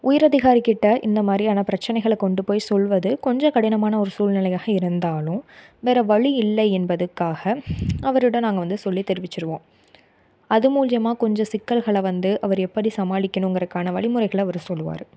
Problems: none marked